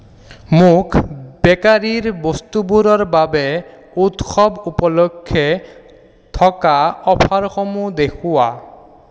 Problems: none marked